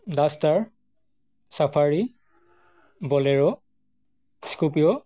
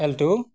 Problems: none marked